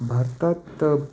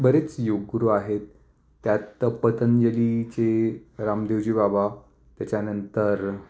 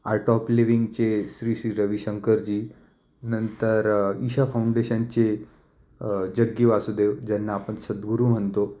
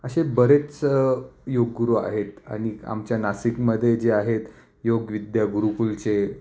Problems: constant background noise, echo